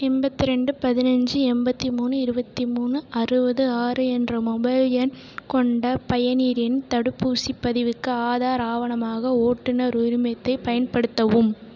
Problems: none marked